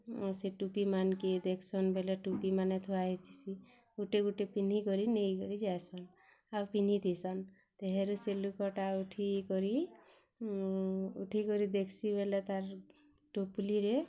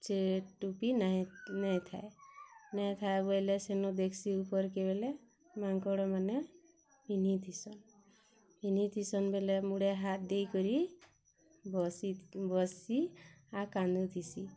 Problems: none marked